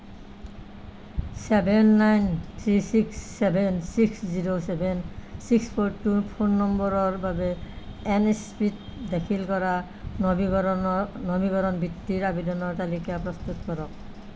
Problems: none marked